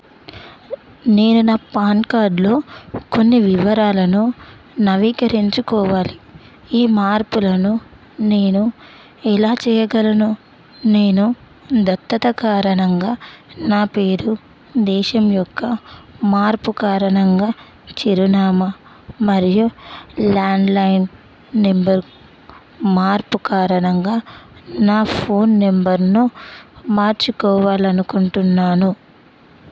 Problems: constant background noise